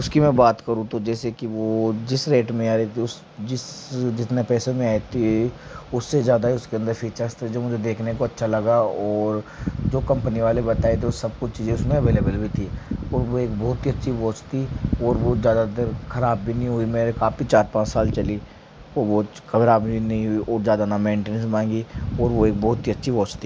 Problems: background sounds at intervals